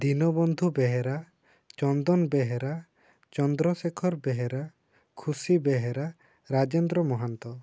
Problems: low volume